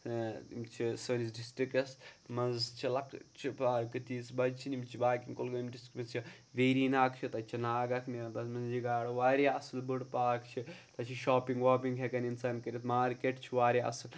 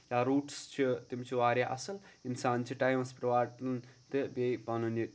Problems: none marked